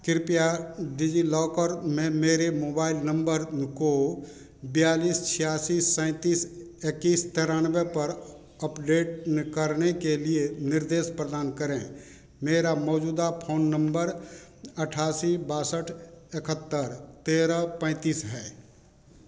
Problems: none marked